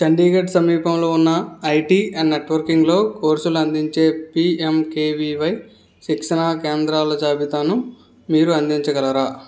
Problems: background sounds at intervals